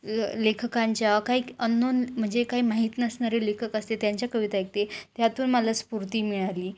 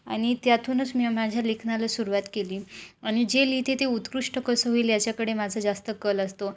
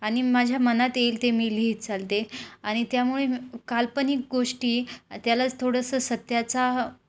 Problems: background sounds at intervals